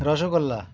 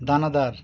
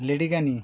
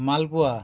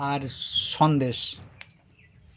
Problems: constant background noise